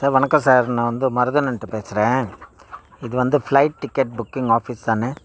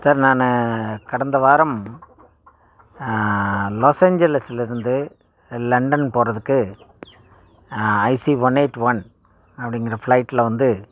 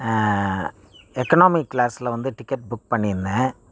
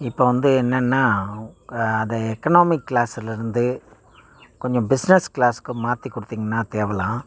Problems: background sounds at intervals